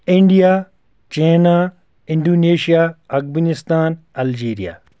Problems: background sounds at intervals